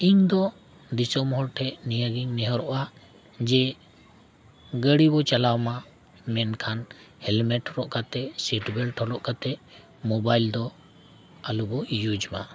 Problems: none marked